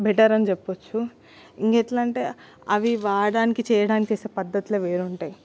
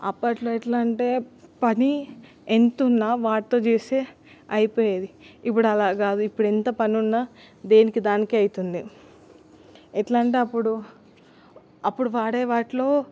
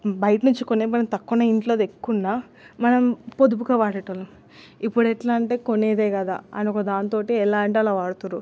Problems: constant background noise